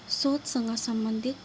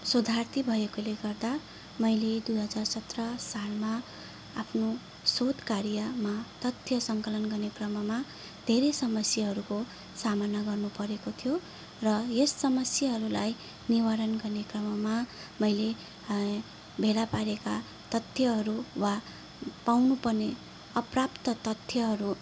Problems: background sounds at intervals